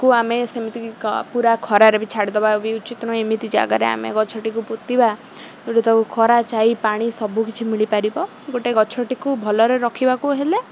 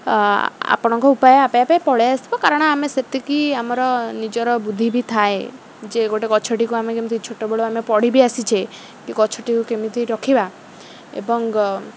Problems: constant background noise